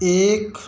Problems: none marked